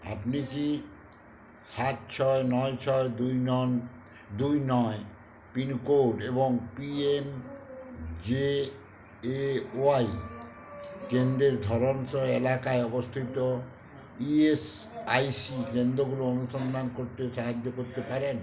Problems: none marked